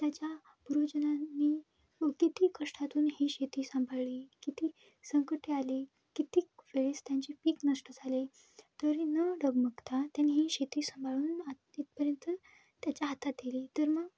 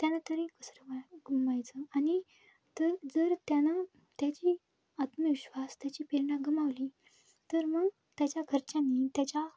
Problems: none marked